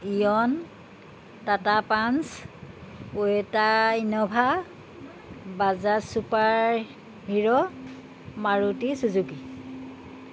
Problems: none marked